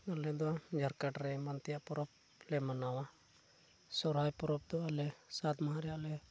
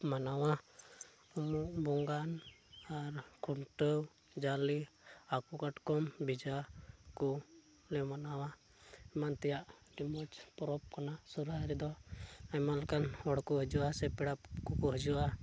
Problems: none marked